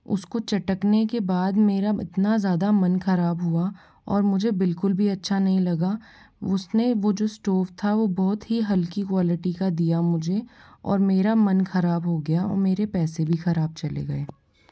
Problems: background sounds at intervals